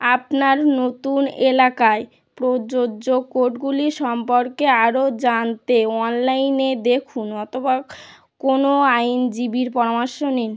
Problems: none marked